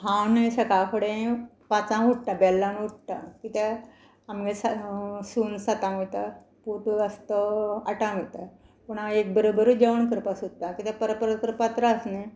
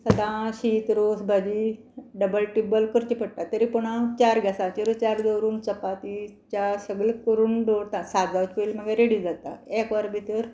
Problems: constant background noise